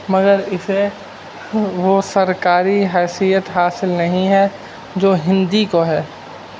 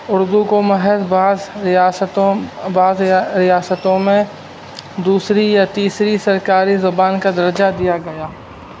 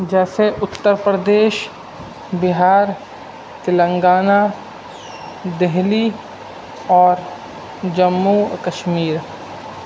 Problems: constant background noise